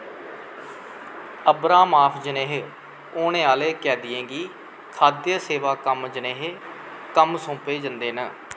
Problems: constant background noise